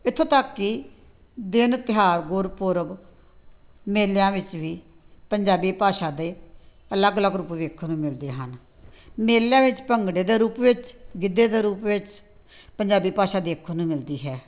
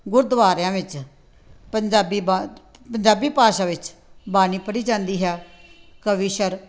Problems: background sounds at intervals, background conversations at intervals